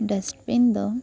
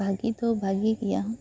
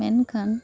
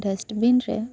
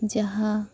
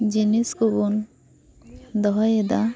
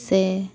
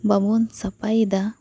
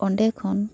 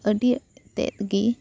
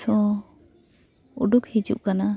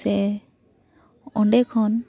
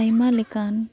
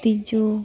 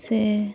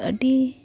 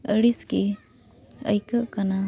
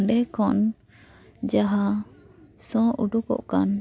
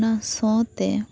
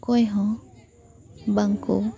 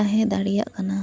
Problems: background sounds at intervals, continuous background conversations